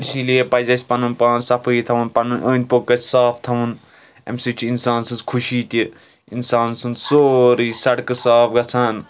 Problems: background sounds at intervals, continuous background conversations